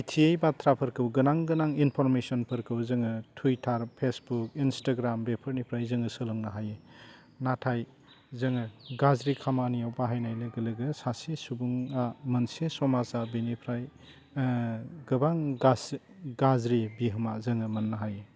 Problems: low volume